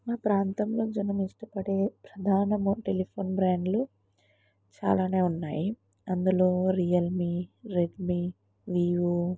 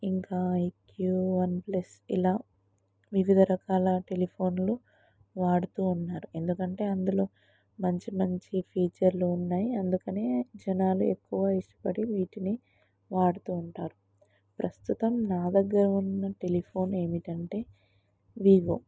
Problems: low volume